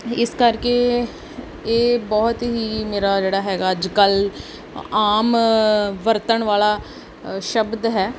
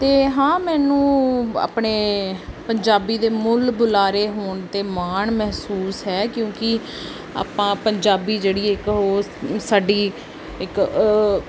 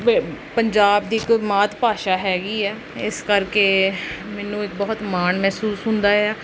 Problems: background sounds at intervals